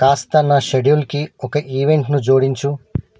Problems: none marked